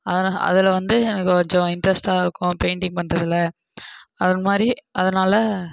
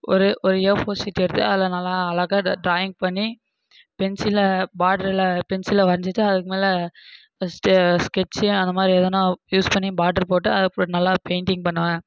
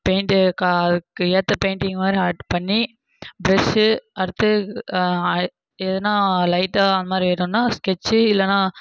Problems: background sounds at intervals